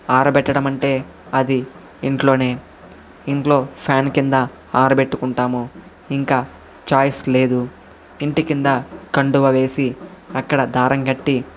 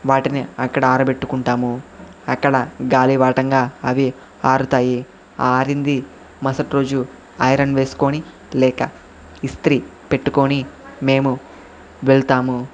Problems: constant background noise, background conversations at intervals